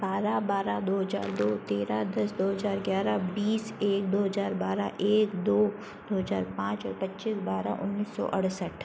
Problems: constant background noise